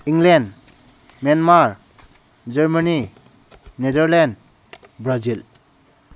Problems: none marked